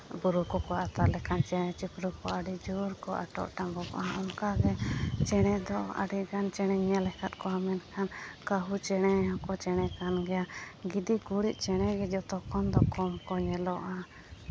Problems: constant background noise